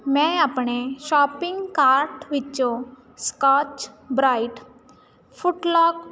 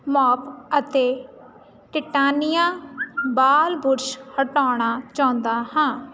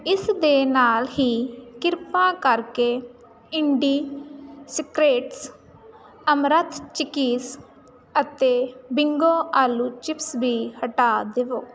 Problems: constant background noise